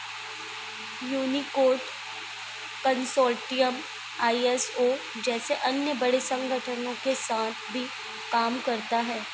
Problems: none marked